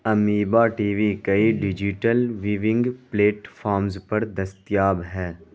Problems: constant background noise